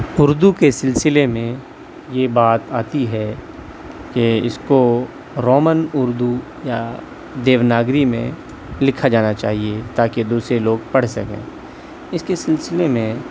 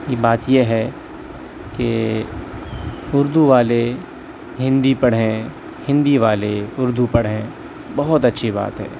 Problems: none marked